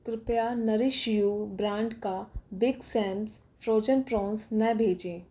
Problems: none marked